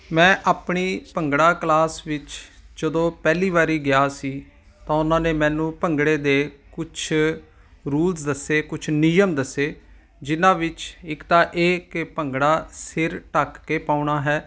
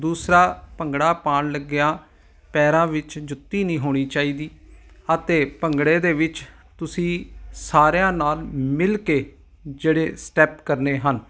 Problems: none marked